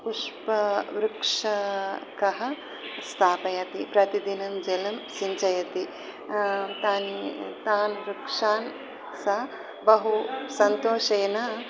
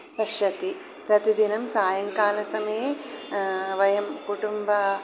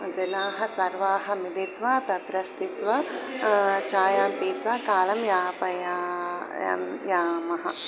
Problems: constant background noise